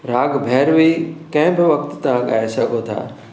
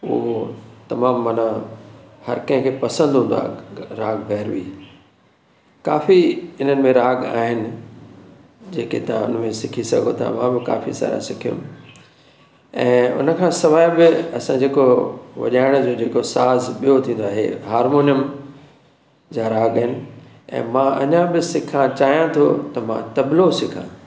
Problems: none marked